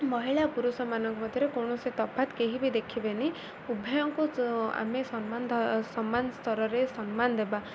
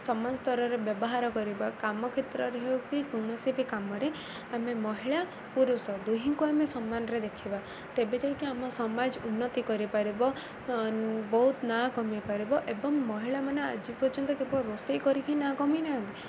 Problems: none marked